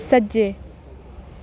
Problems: constant background noise